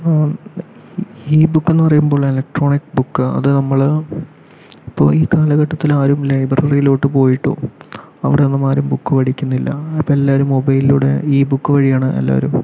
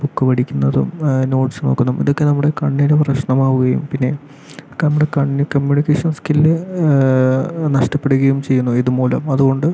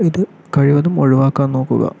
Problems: low volume